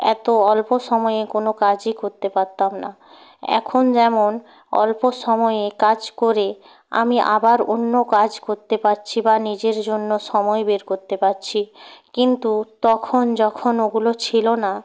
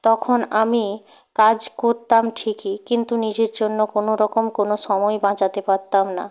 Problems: none marked